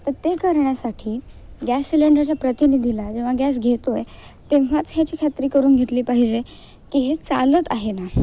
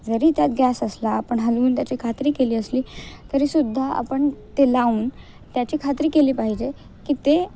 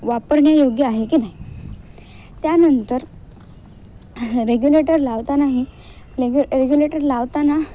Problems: none marked